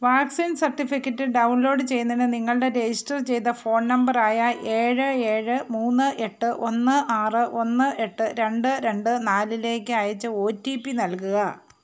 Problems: background sounds at intervals